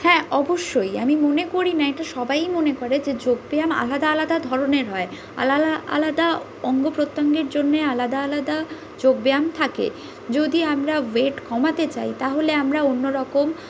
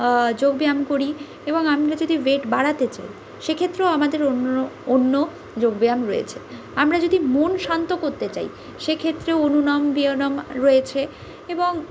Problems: constant background noise